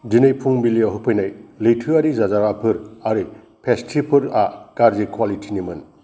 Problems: none marked